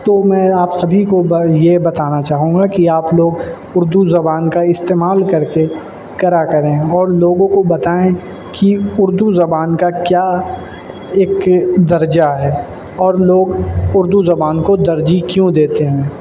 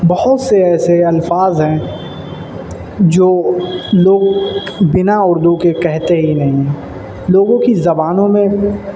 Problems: constant background noise